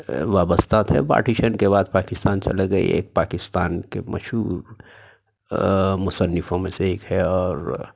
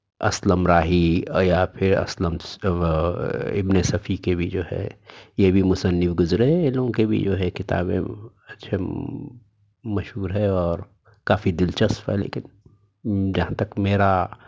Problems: background sounds at intervals